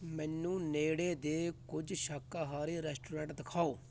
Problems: constant background noise